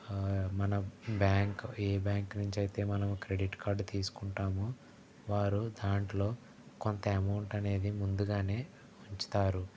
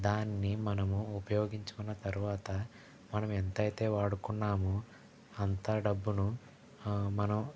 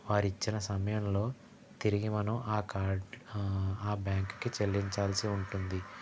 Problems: background sounds at intervals, background conversations at intervals, low volume